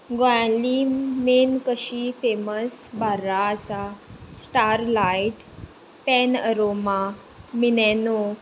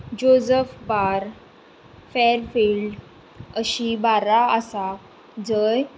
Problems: constant background noise